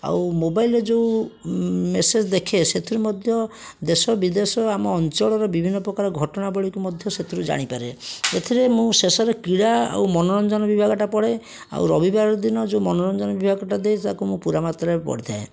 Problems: none marked